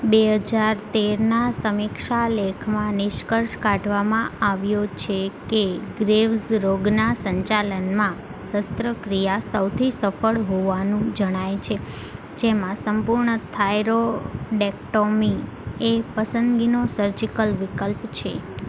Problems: constant background noise